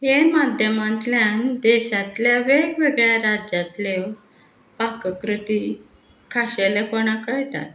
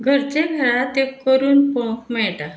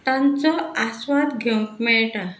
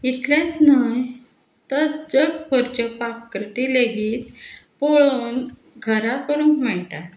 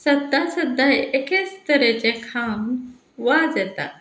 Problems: background sounds at intervals